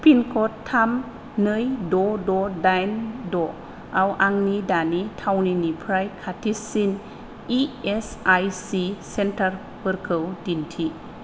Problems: none marked